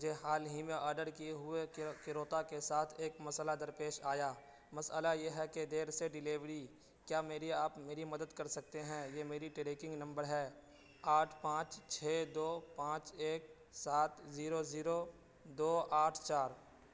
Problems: constant background noise